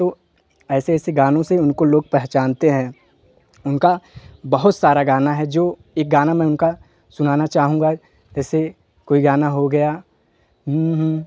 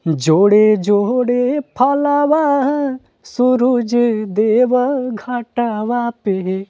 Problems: none marked